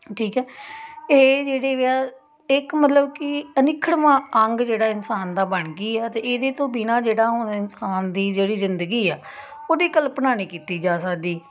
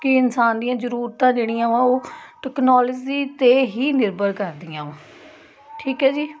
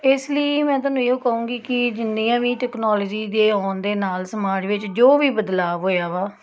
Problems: constant background noise